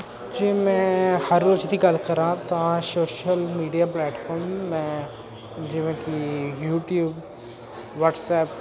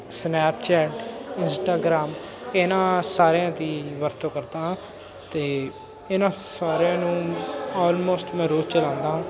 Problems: constant background noise, continuous background conversations